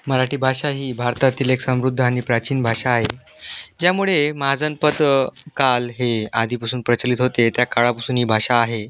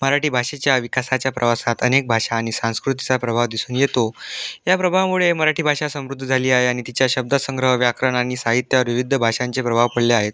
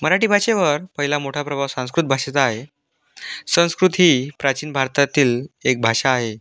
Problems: constant background noise